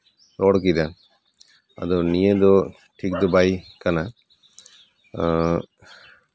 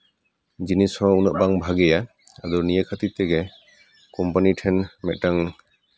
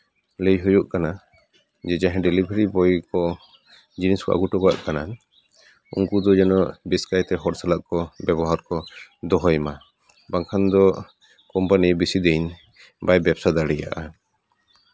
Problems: none marked